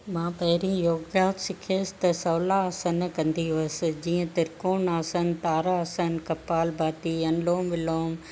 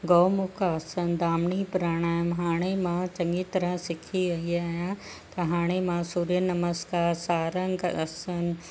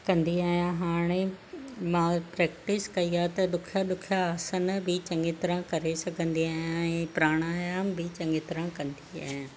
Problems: none marked